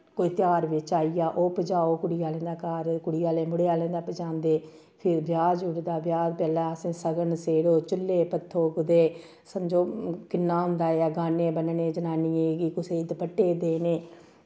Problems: none marked